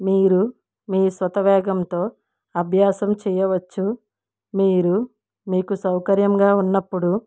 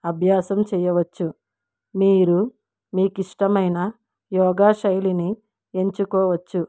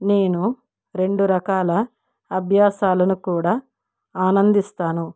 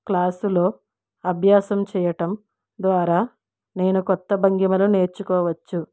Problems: none marked